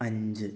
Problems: low volume